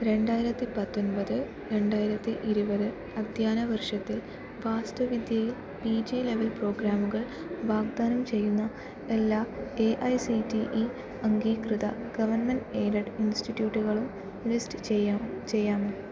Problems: constant background noise, low volume